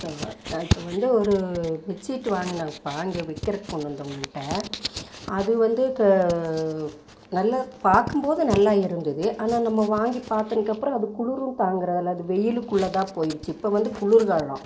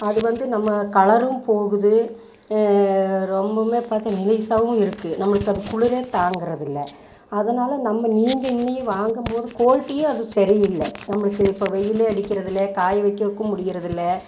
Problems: background sounds at intervals